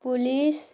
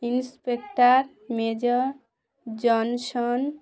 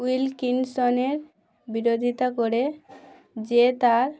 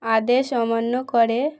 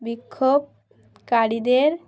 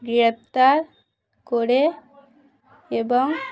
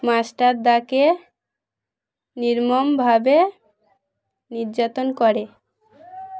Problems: background sounds at intervals, background conversations at intervals